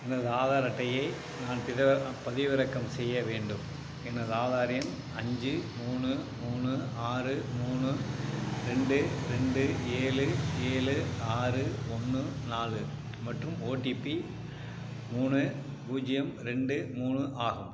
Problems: background sounds at intervals